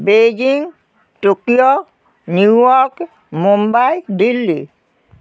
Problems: constant background noise